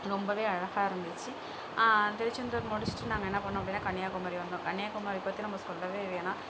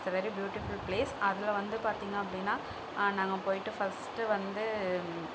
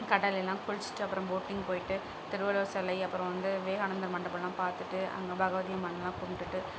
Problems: constant background noise